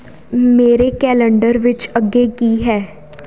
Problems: none marked